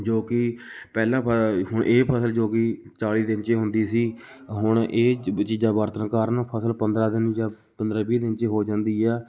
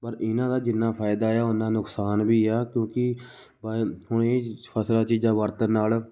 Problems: none marked